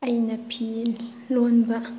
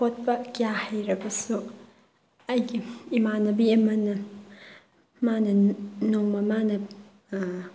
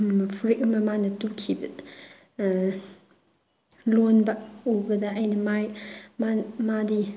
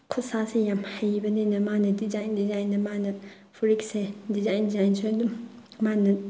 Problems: background sounds at intervals